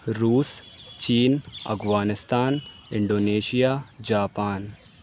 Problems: none marked